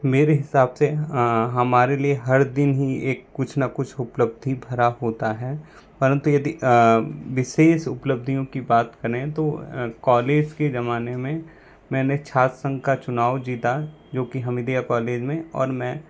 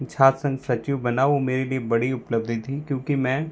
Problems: constant background noise